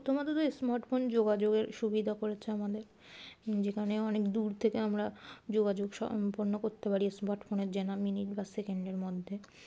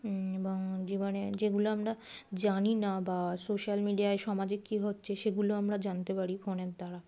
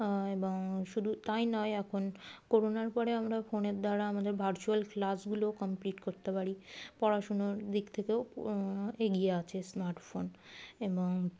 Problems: none marked